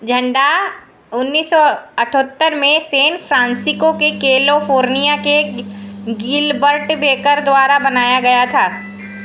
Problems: none marked